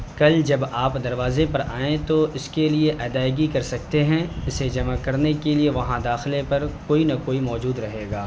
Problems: none marked